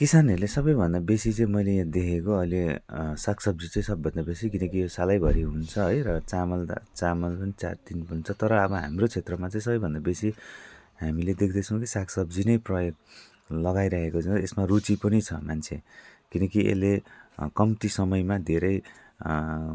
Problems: none marked